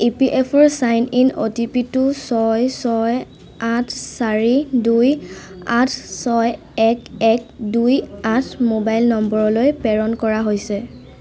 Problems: none marked